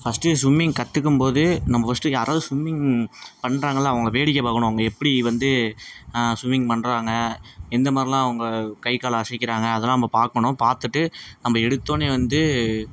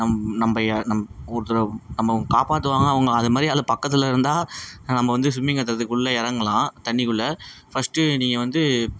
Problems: constant background noise